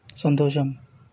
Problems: none marked